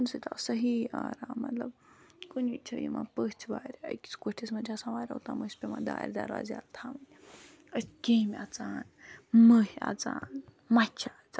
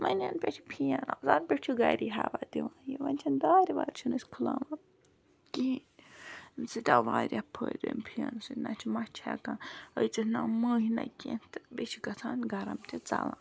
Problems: background sounds at intervals